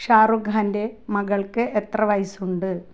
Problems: low volume